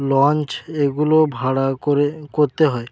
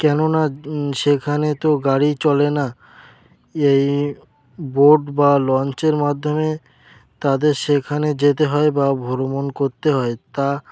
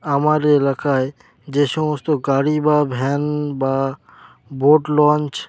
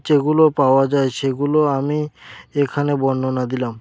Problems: constant background noise